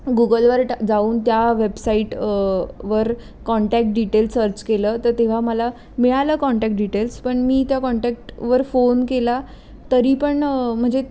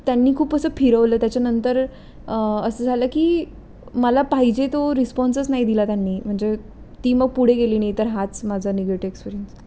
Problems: background sounds at intervals